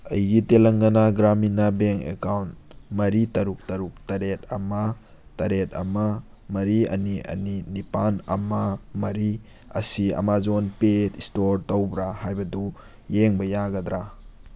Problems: background sounds at intervals